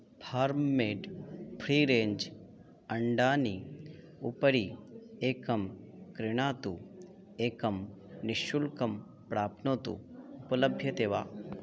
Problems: continuous background conversations